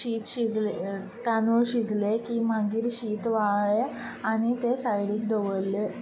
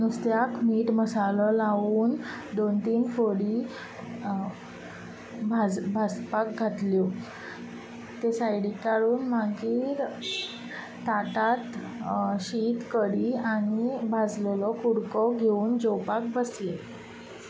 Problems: none marked